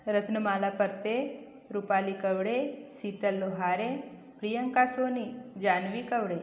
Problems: none marked